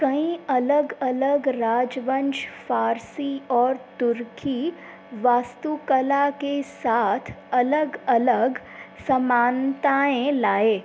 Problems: constant background noise